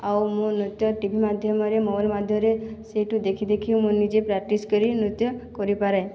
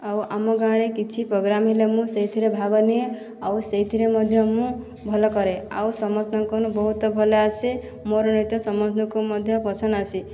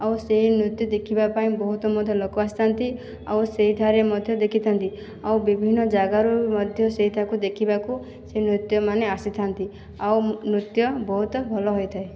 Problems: background conversations at intervals